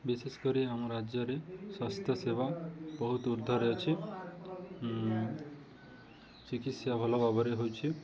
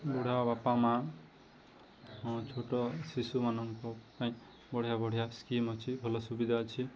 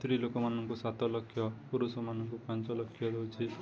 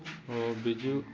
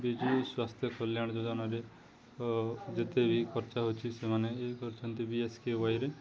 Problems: continuous background conversations